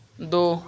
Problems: constant background noise